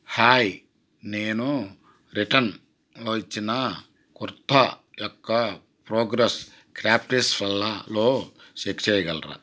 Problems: none marked